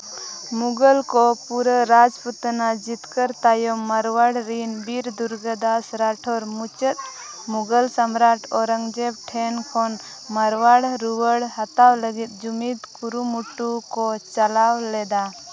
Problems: constant background noise, continuous background conversations